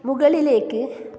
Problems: constant background noise